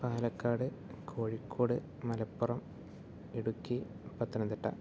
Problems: none marked